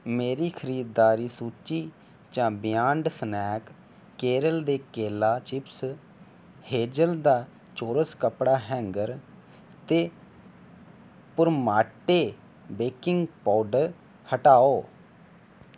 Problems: none marked